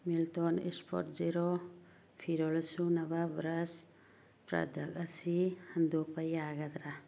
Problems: low volume